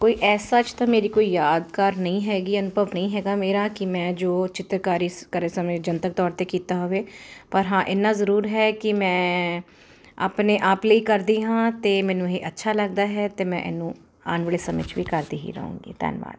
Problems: constant background noise